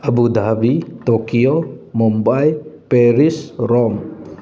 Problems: background sounds at intervals